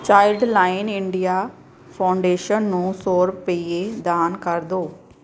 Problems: background sounds at intervals